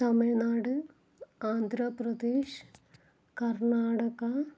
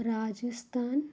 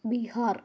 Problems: low volume